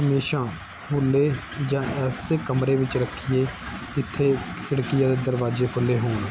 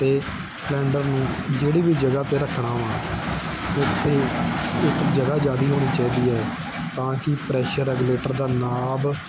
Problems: constant background noise